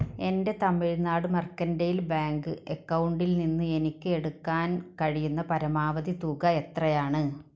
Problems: background sounds at intervals